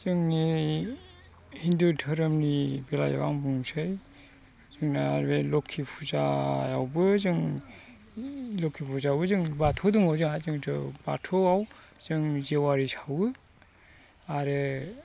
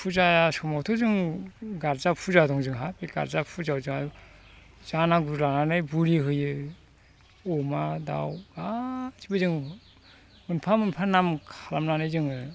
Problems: constant background noise